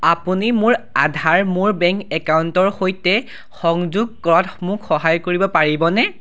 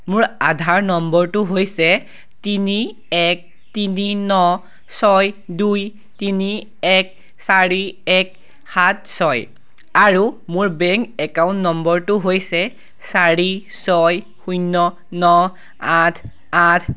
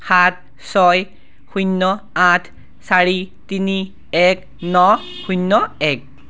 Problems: none marked